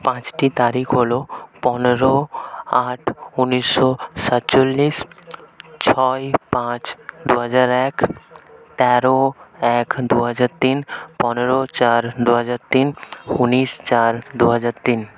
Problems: constant background noise, continuous background conversations